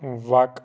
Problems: background sounds at intervals